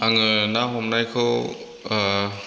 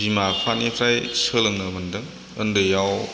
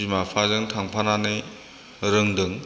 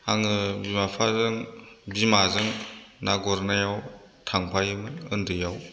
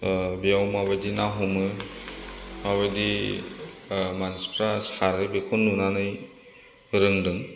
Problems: none marked